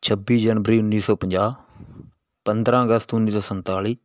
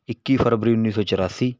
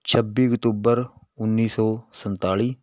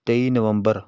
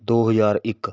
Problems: background sounds at intervals